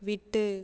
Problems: none marked